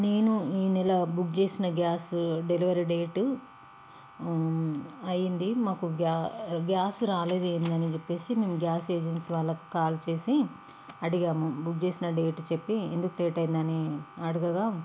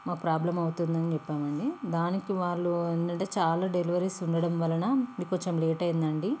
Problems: constant background noise